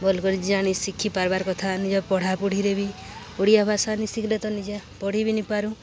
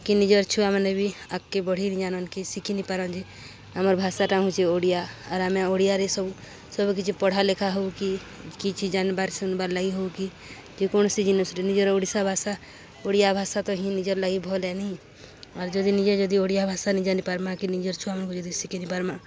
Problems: constant background noise